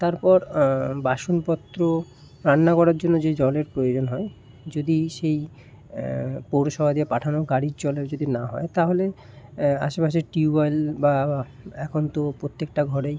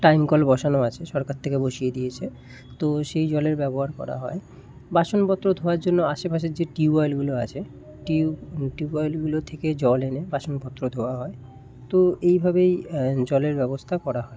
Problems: none marked